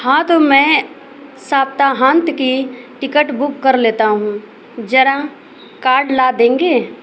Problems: constant background noise